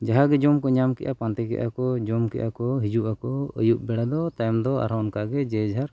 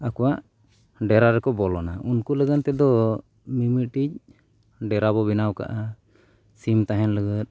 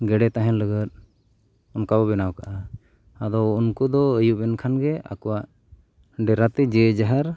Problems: none marked